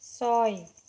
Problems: none marked